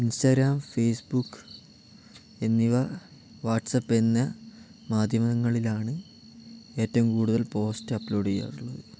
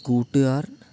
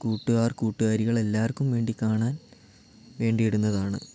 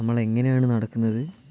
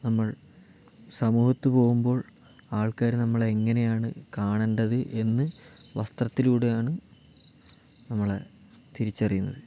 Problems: none marked